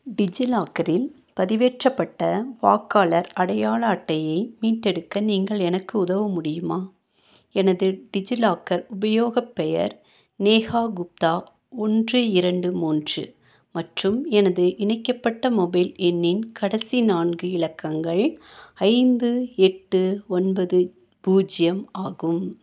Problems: none marked